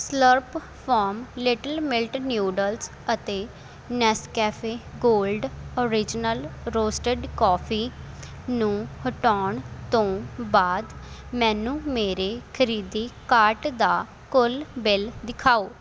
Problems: constant background noise